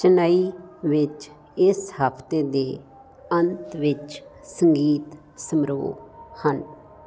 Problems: constant background noise